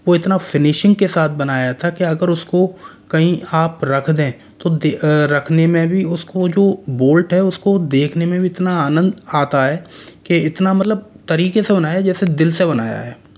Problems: constant background noise